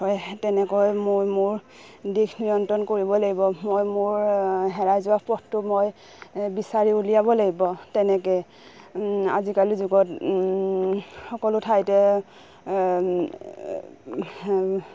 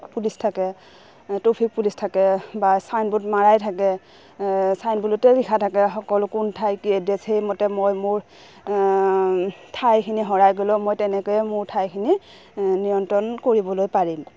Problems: background sounds at intervals